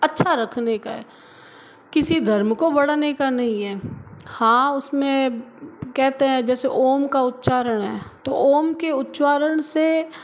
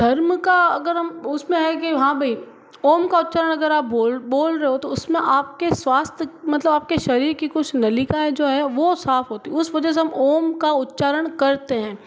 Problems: background sounds at intervals